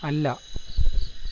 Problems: constant background noise, low volume